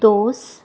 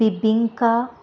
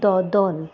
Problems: none marked